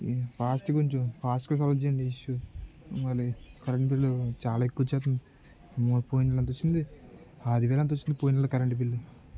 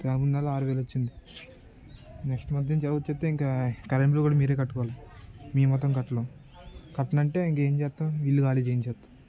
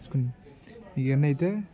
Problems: low volume